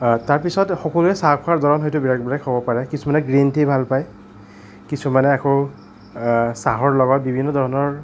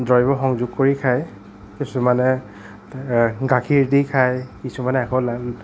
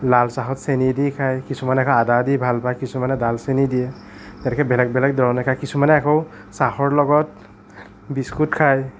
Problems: none marked